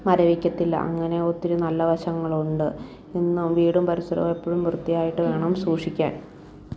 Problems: background sounds at intervals, low volume